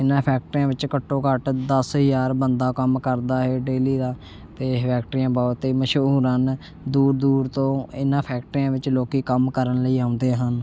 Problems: constant background noise